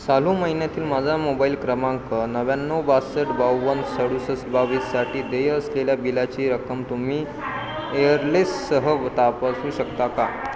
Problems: constant background noise, continuous background conversations